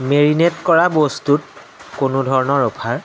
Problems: constant background noise